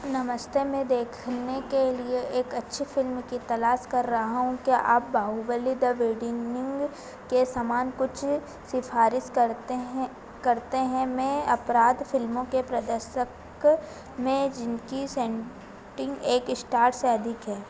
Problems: constant background noise